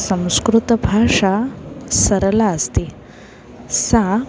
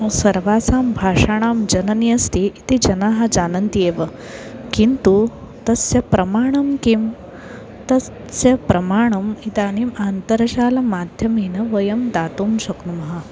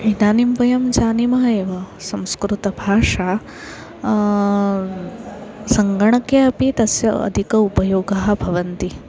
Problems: constant background noise, continuous background conversations